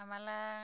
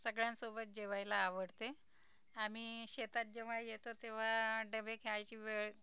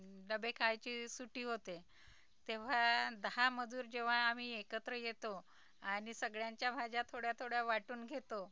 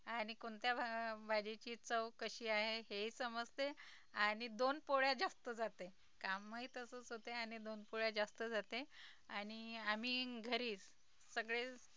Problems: background sounds at intervals, low volume